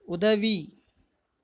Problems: none marked